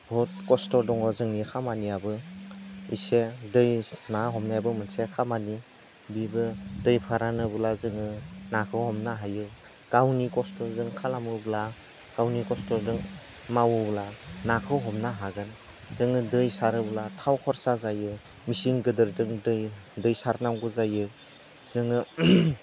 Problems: constant background noise